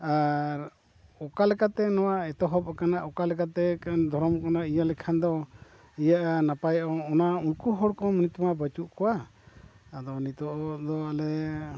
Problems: constant background noise, low volume